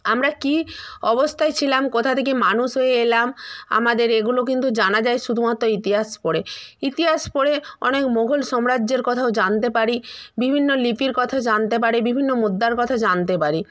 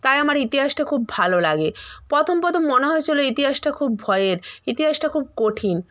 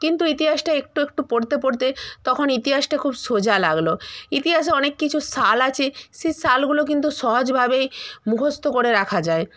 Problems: none marked